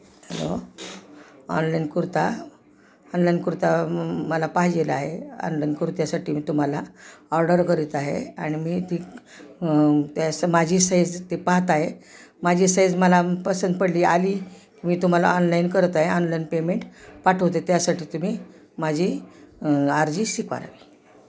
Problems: none marked